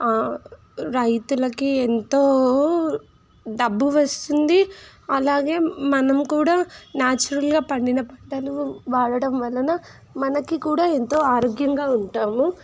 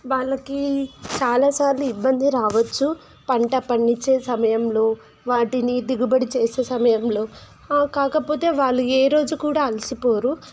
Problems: constant background noise